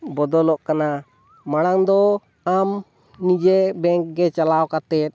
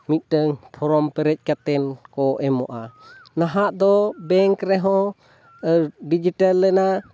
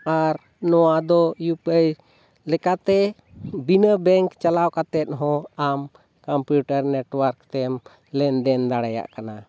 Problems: none marked